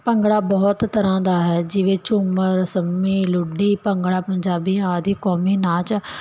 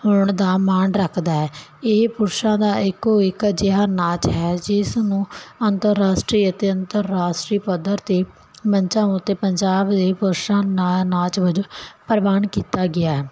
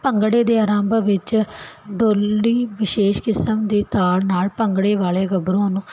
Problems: none marked